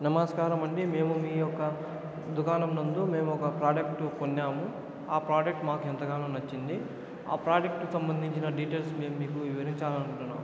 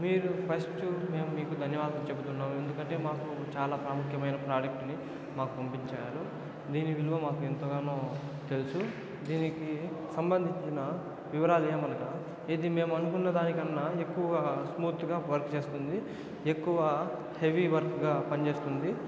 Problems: constant background noise